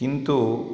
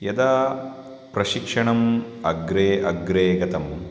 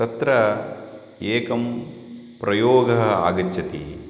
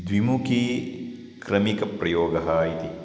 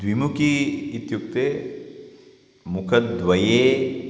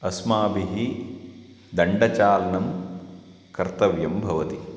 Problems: none marked